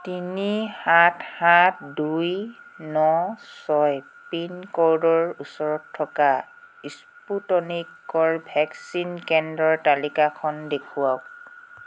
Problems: background sounds at intervals